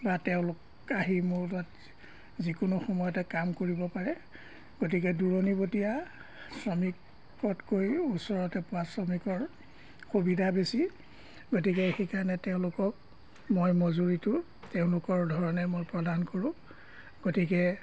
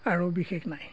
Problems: background sounds at intervals